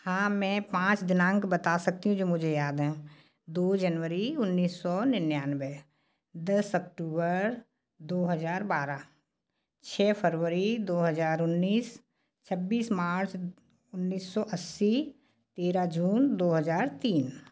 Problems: background sounds at intervals